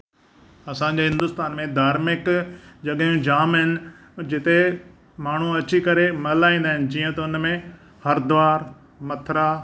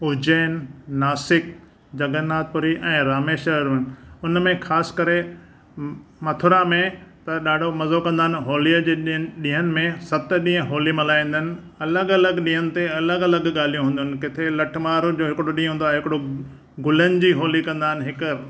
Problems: background sounds at intervals